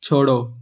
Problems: none marked